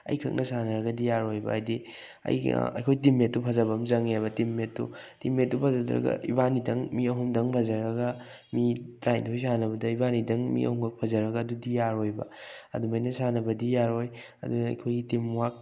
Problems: none marked